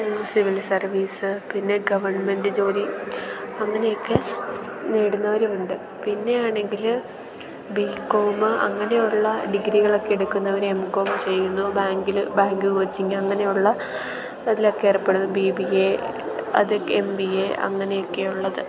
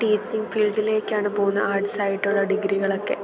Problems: background sounds at intervals